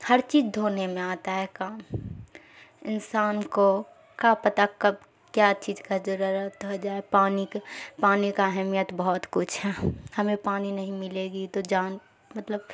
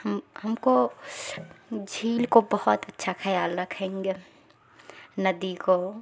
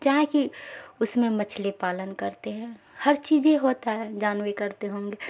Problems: constant background noise